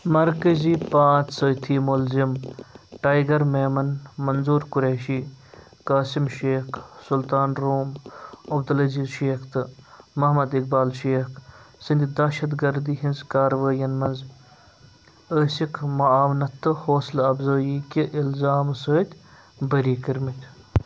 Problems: background sounds at intervals